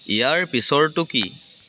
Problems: constant background noise